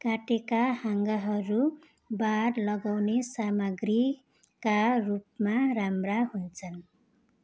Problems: constant background noise